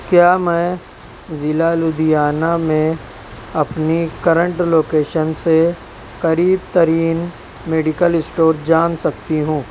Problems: none marked